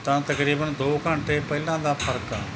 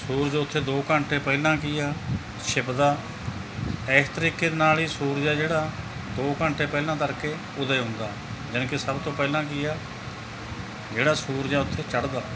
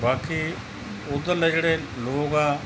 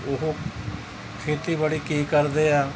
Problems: background sounds at intervals